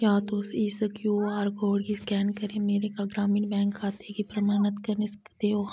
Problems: background conversations at intervals